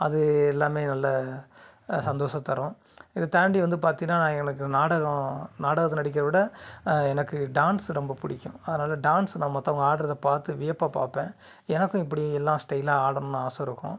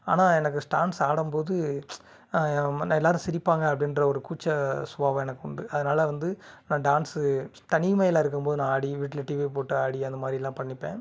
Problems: none marked